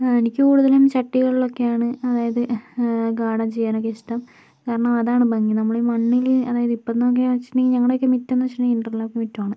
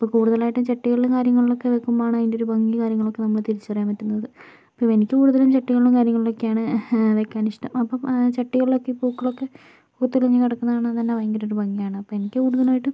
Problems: low volume